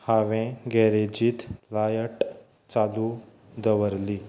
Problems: background sounds at intervals